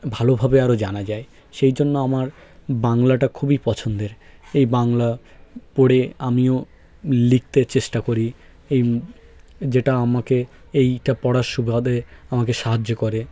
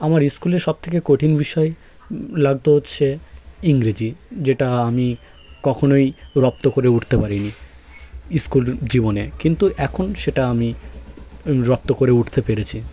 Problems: continuous background conversations